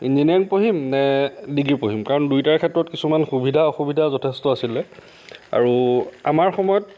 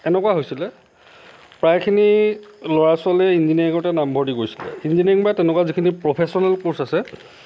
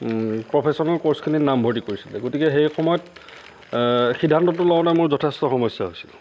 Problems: none marked